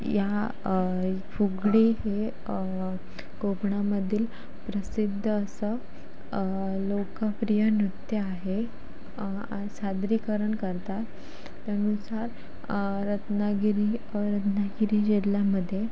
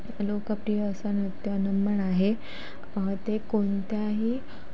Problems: constant background noise, background conversations at intervals